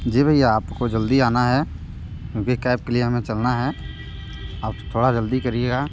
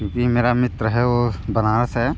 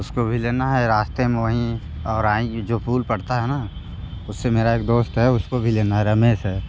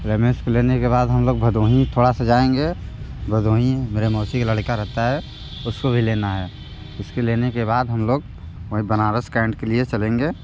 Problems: background sounds at intervals